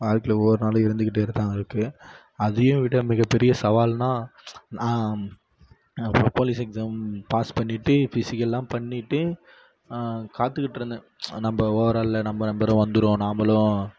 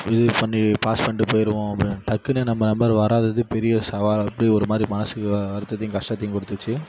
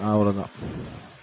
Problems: background sounds at intervals